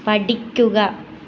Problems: none marked